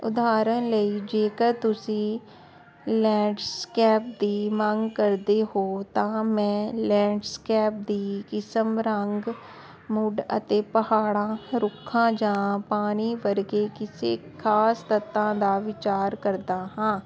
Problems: constant background noise